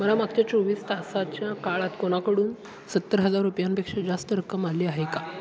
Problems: background conversations at intervals